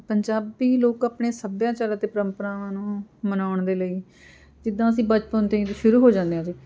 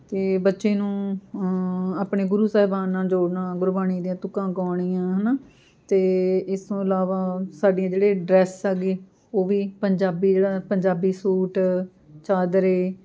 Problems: continuous background conversations